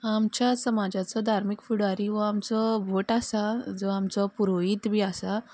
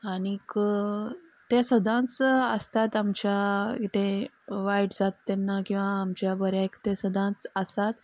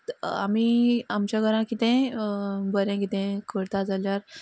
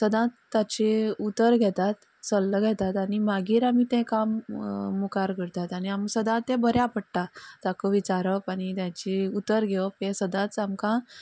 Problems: background sounds at intervals, background conversations at intervals